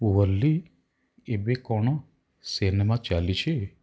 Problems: none marked